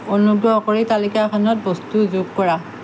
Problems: constant background noise